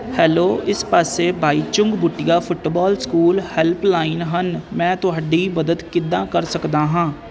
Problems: constant background noise